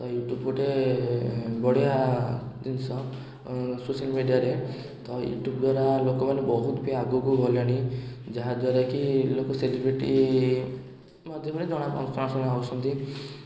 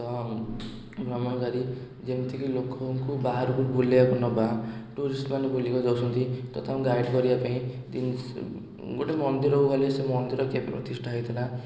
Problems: background sounds at intervals